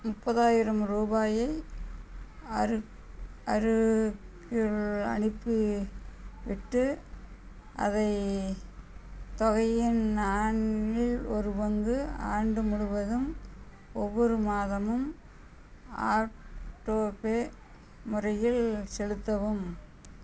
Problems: background sounds at intervals